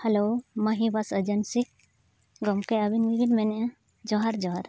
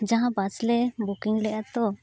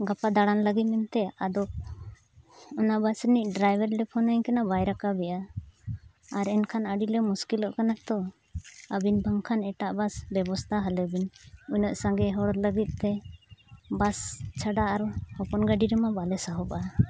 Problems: none marked